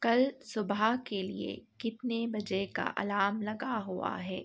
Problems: none marked